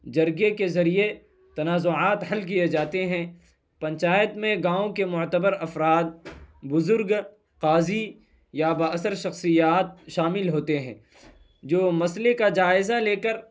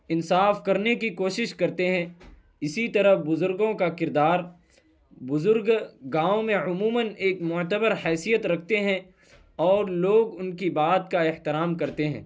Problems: none marked